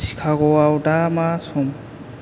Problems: constant background noise